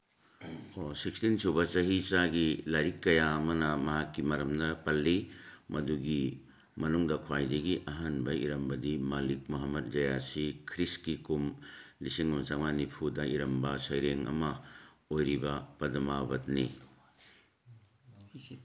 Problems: background conversations at intervals